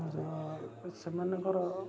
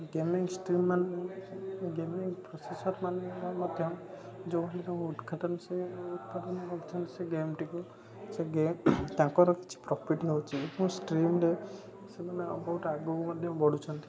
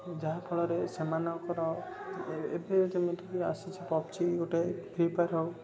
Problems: constant background noise, continuous background conversations